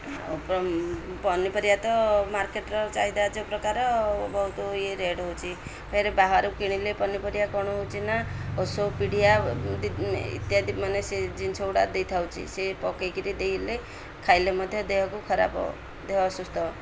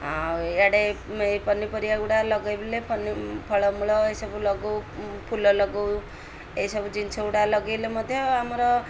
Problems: none marked